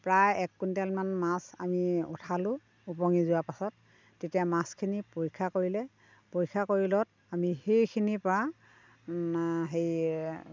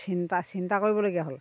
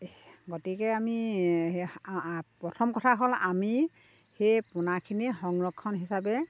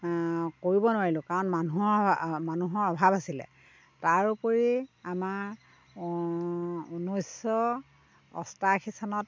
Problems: background sounds at intervals